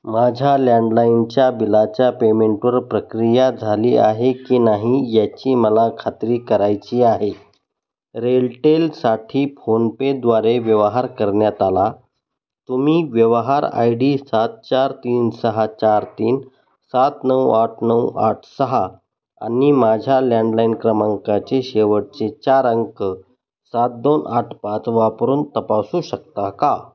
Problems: none marked